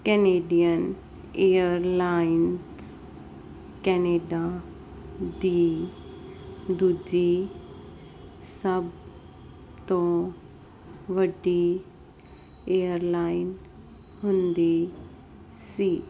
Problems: none marked